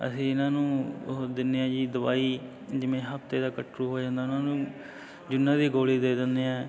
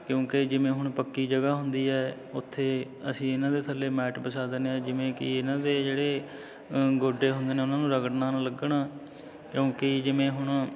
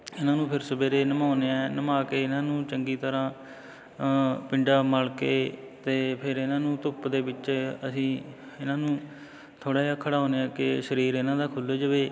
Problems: constant background noise